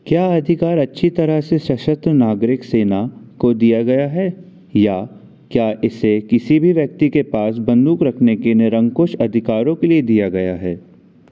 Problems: constant background noise